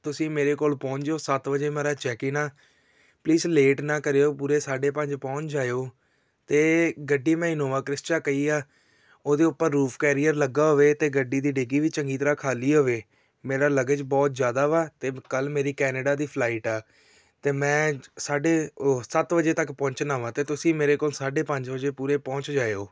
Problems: background sounds at intervals